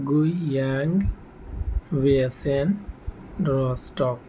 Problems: constant background noise